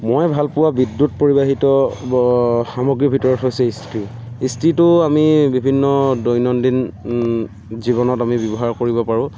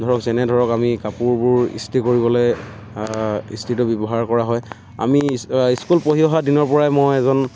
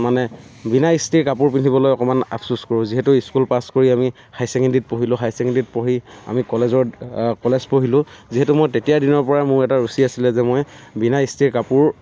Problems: constant background noise